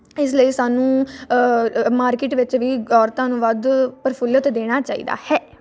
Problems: none marked